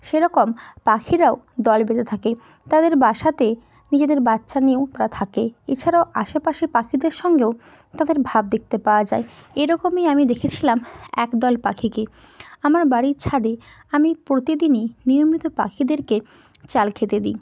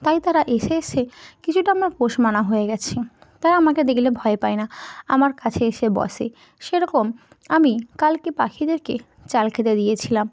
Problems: background sounds at intervals